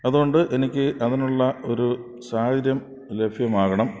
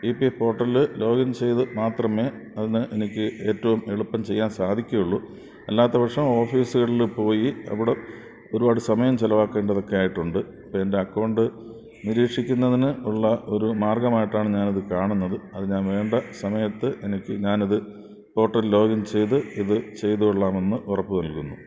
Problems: background sounds at intervals